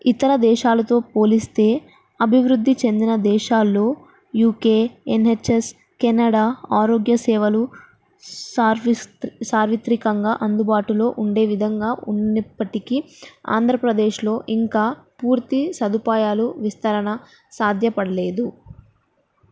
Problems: none marked